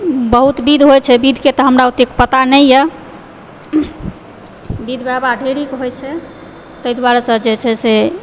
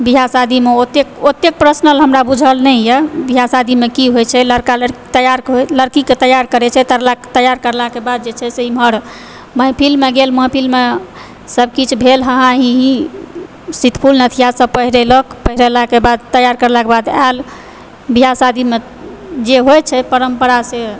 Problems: background sounds at intervals